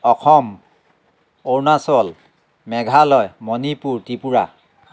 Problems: constant background noise